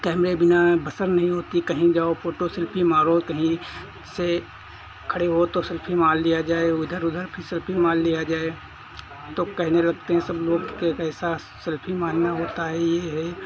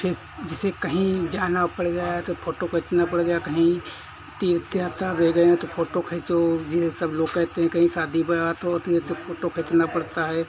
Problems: constant background noise